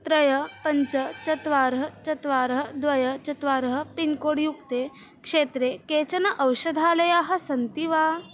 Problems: constant background noise